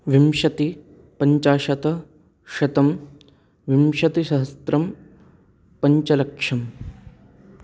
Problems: none marked